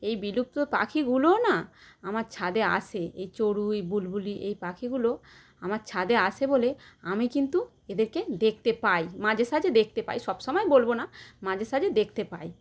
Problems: none marked